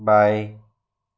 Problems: none marked